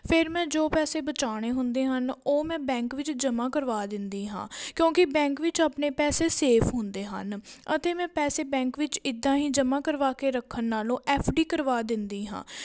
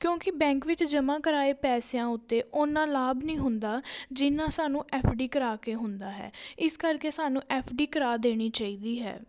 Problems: background sounds at intervals